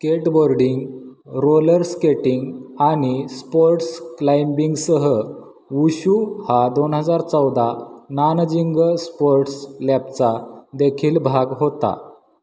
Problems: constant background noise, echo